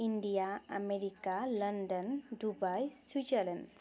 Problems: constant background noise, continuous background conversations